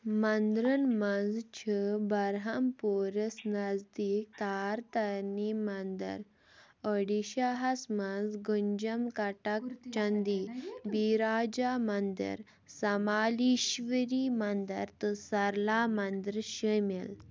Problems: background conversations at intervals